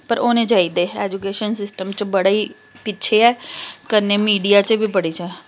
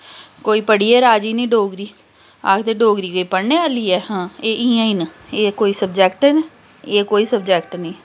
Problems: constant background noise